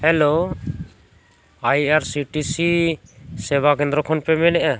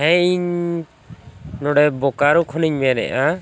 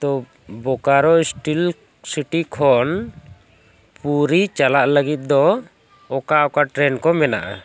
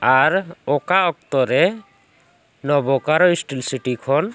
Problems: background sounds at intervals